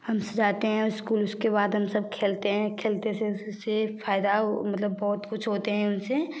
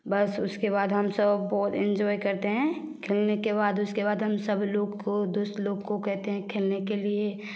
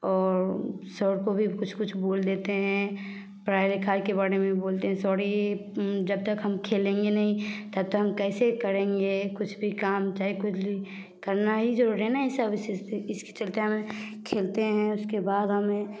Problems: none marked